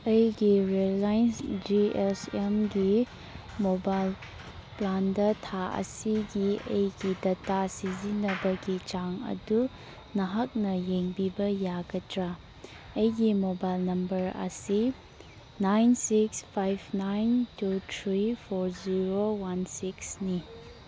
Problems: background sounds at intervals